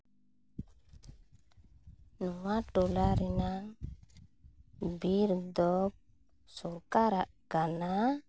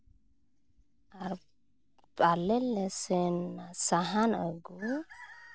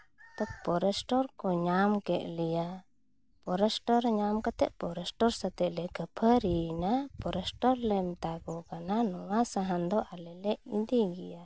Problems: background sounds at intervals